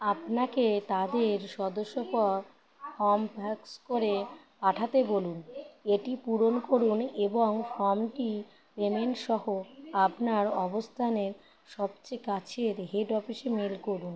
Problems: constant background noise